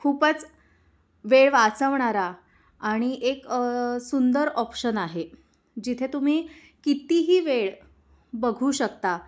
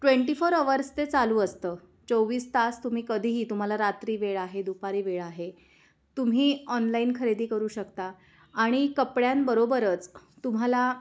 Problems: background sounds at intervals, background conversations at intervals